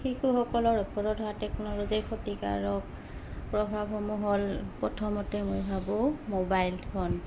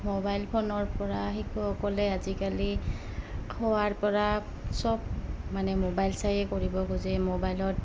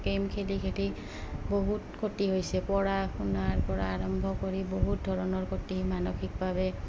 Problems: background sounds at intervals, background conversations at intervals